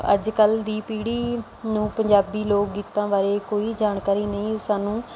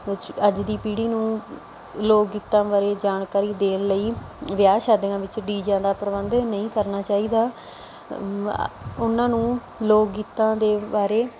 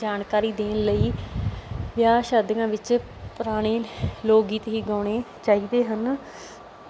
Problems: background conversations at intervals